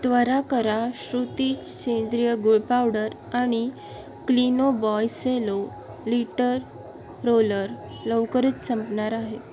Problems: none marked